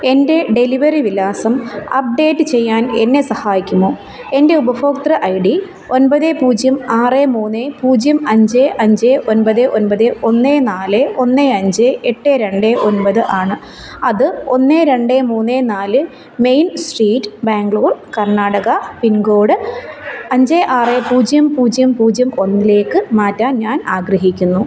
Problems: constant background noise